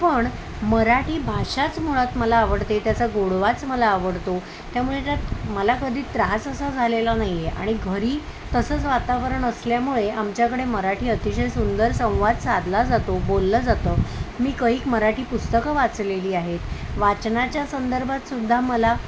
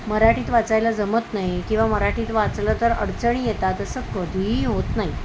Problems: constant background noise